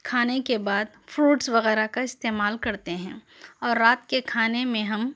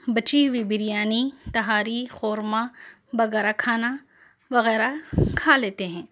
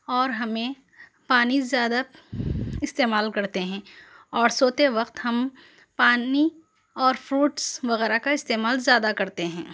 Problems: background sounds at intervals